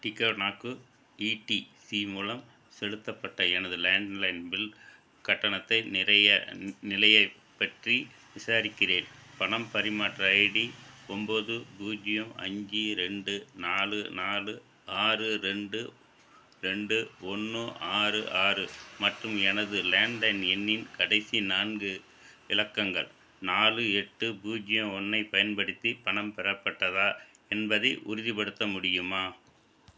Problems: background sounds at intervals